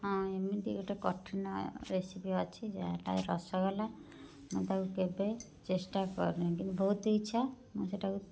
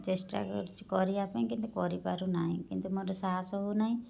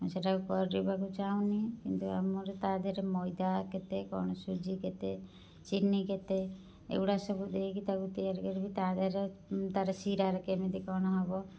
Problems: low volume